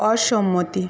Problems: constant background noise